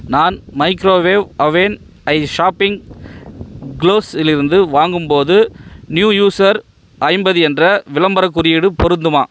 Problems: background sounds at intervals